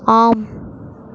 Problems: none marked